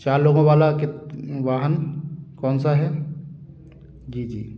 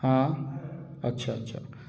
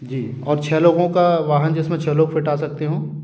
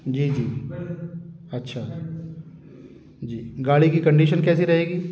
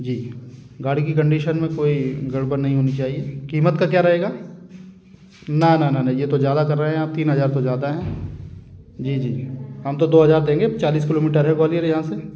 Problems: constant background noise, background conversations at intervals